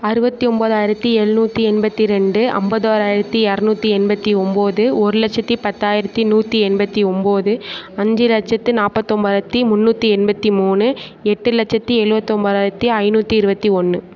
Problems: none marked